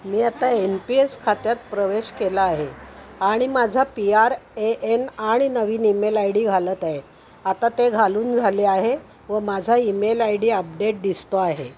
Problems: constant background noise